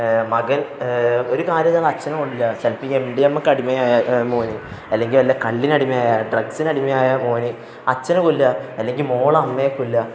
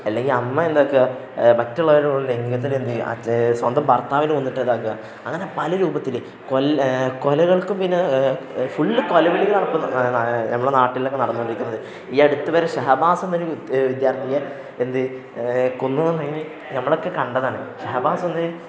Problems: background conversations at intervals